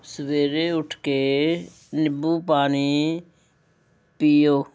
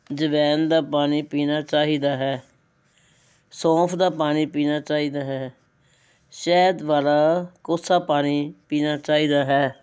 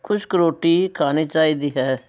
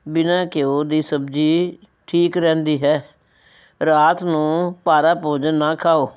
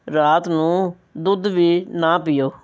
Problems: background conversations at intervals